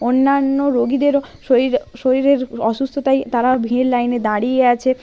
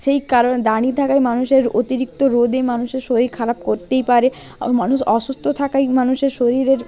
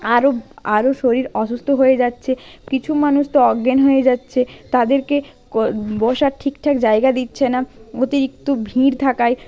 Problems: background sounds at intervals, background conversations at intervals